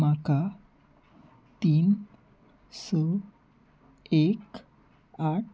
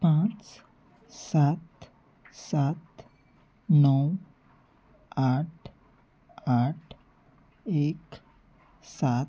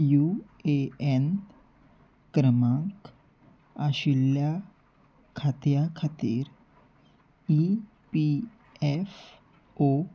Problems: background sounds at intervals